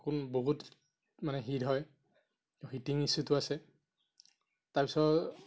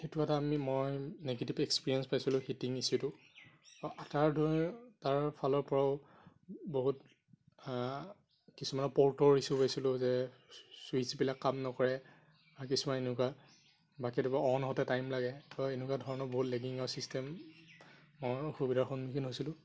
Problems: constant background noise